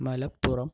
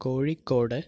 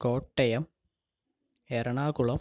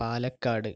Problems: low volume